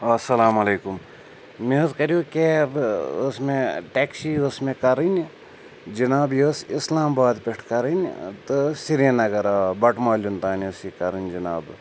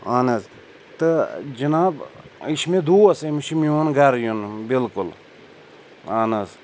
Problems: none marked